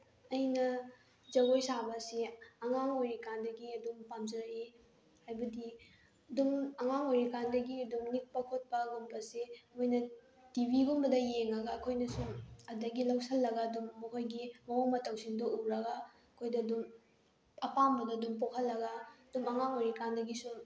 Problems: background sounds at intervals